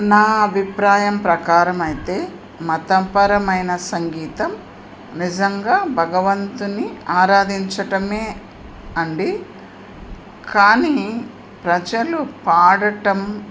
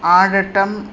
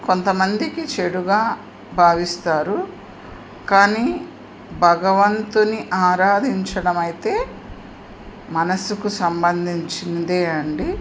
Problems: constant background noise